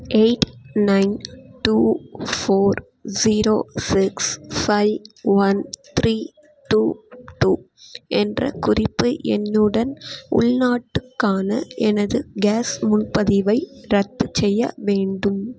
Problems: constant background noise